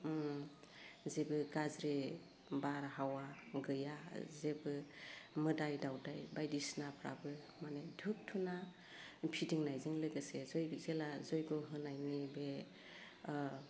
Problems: low volume